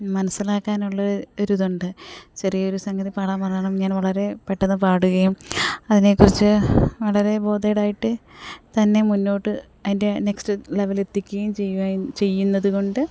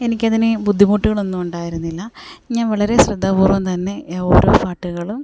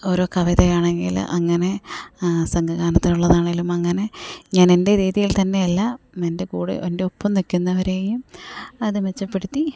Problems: background sounds at intervals, low volume